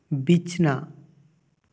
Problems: echo